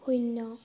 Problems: low volume